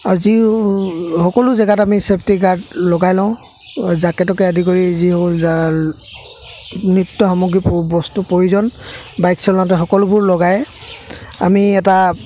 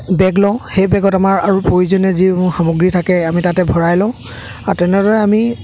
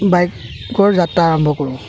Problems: constant background noise, background conversations at intervals